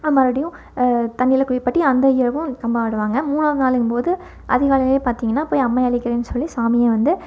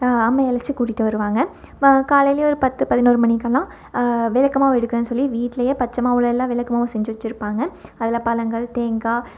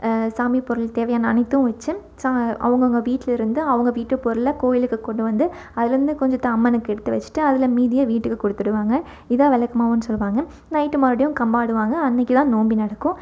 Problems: none marked